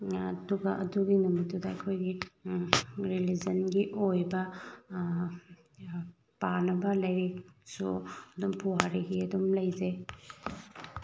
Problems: background sounds at intervals